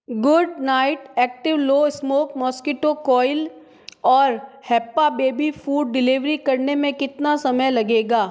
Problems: background sounds at intervals, echo